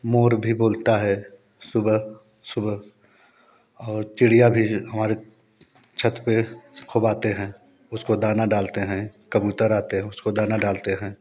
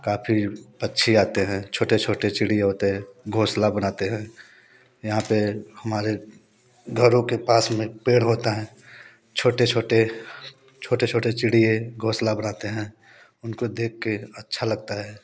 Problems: background sounds at intervals, background conversations at intervals